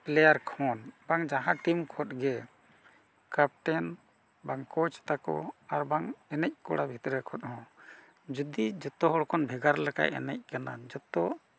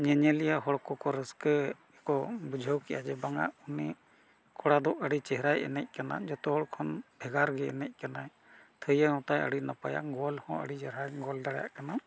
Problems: none marked